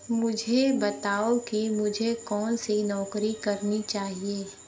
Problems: constant background noise